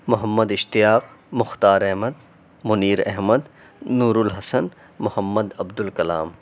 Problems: none marked